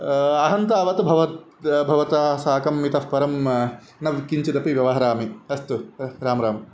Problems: constant background noise